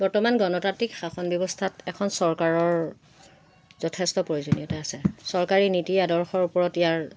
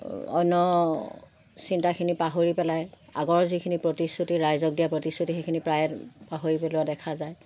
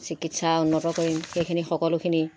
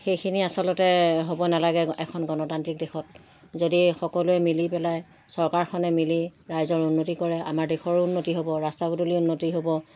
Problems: constant background noise